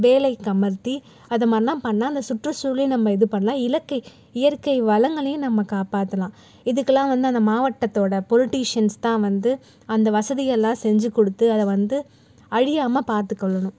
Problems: none marked